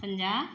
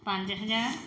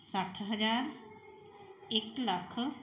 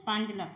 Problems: background sounds at intervals